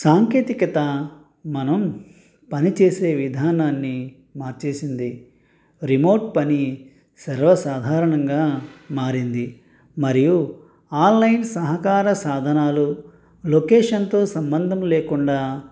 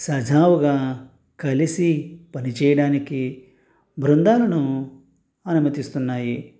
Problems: none marked